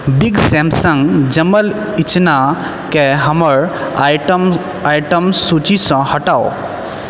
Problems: constant background noise